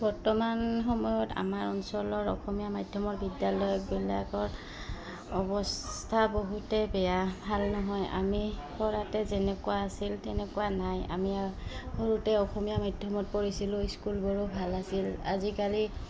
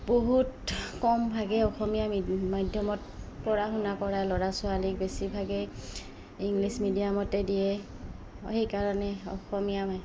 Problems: background sounds at intervals